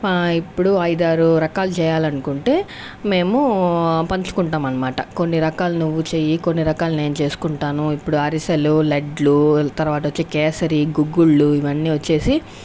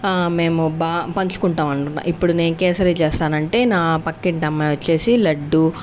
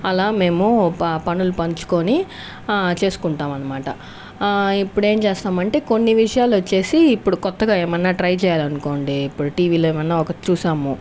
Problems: constant background noise